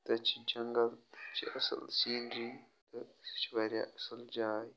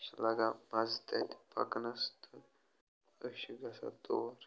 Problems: none marked